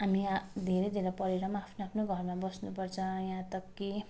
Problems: constant background noise